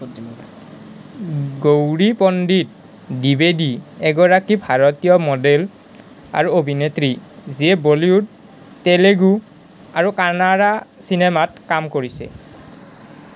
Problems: background conversations at intervals